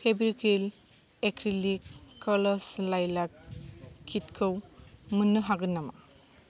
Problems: none marked